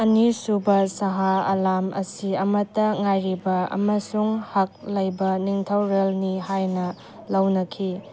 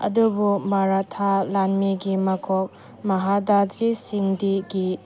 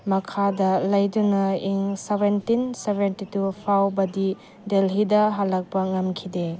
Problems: none marked